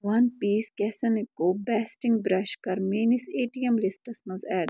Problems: none marked